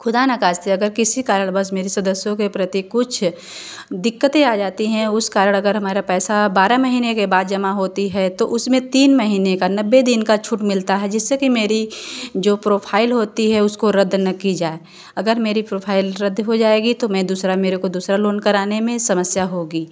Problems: none marked